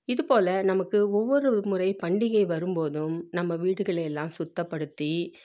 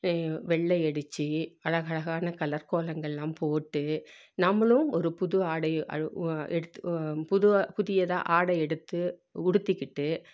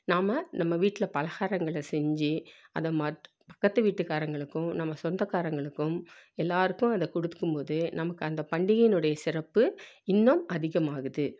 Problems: none marked